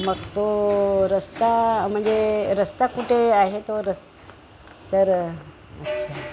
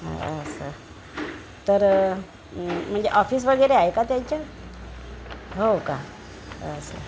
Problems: none marked